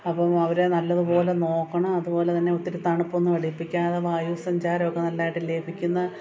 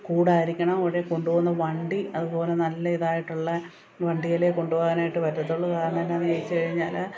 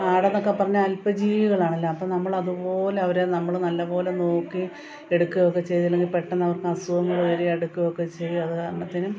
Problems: continuous background conversations